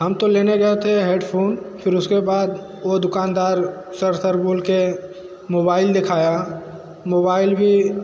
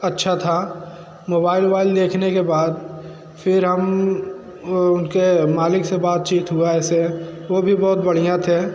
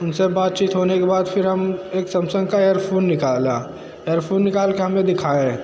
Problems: constant background noise